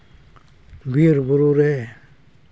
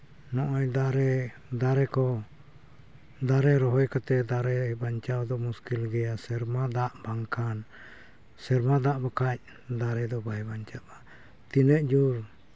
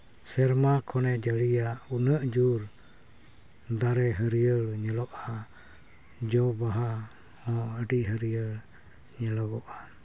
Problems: none marked